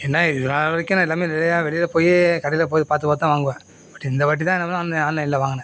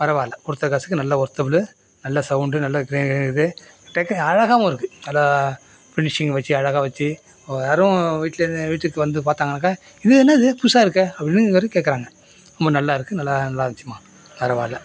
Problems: constant background noise